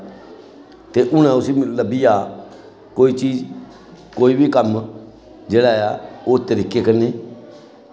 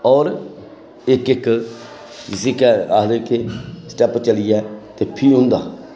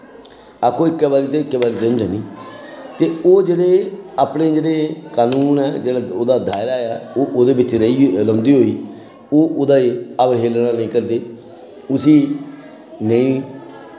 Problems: constant background noise